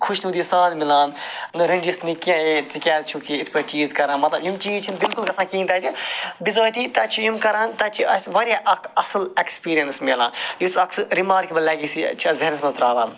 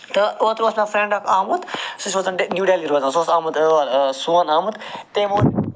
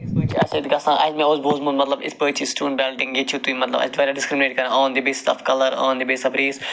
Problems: constant background noise